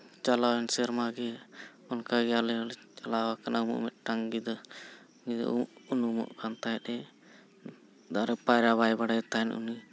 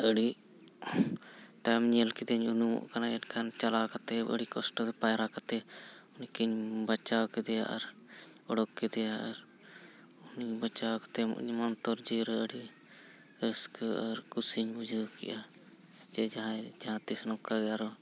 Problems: none marked